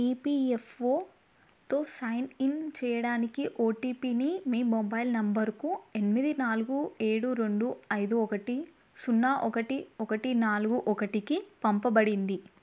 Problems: none marked